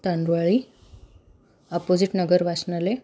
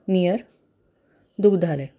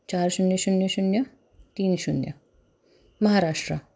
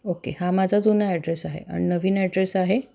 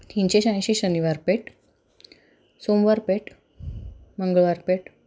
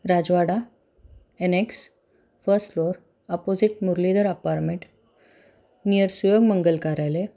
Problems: background sounds at intervals